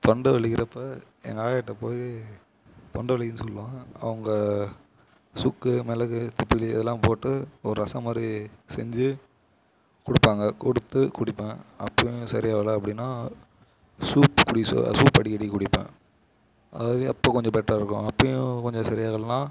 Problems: background sounds at intervals